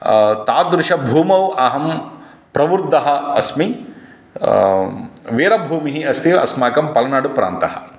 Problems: none marked